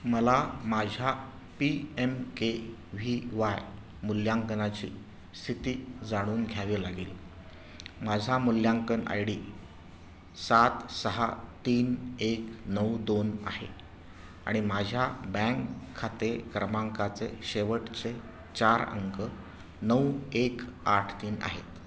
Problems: none marked